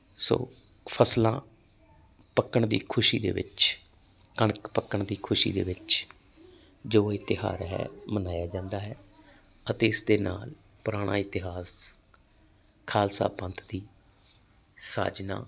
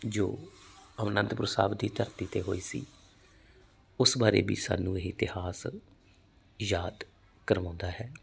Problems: none marked